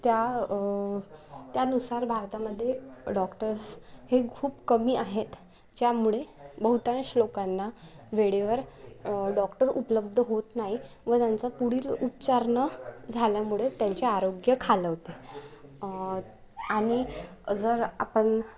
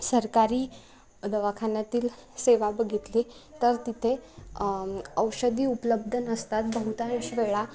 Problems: constant background noise